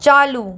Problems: none marked